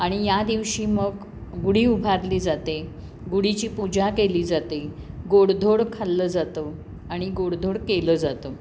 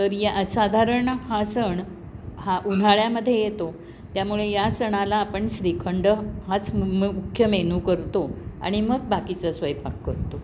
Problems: constant background noise